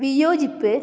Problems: none marked